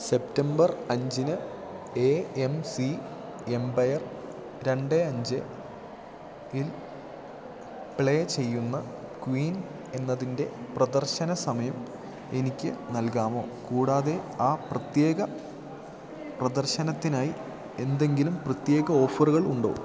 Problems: none marked